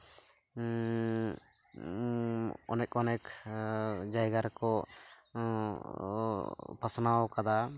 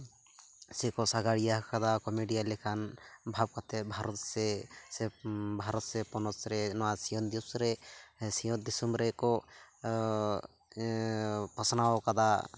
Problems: background sounds at intervals